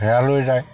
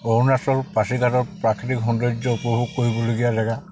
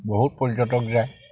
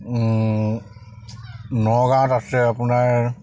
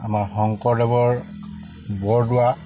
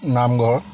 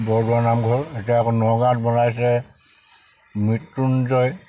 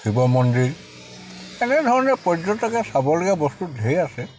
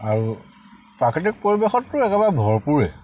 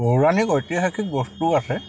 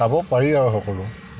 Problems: constant background noise